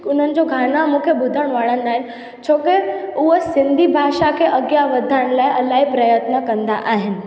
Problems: constant background noise, echo